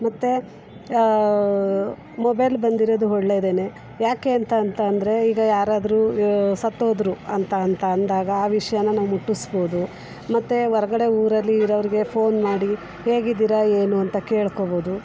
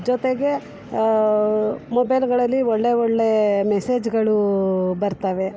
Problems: background sounds at intervals